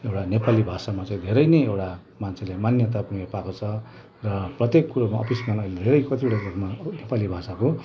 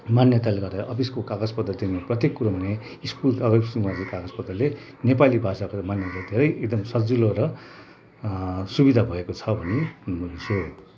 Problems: constant background noise, background conversations at intervals